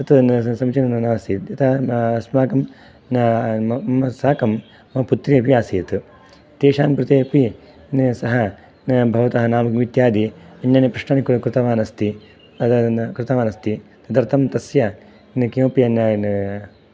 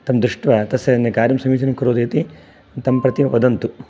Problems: background sounds at intervals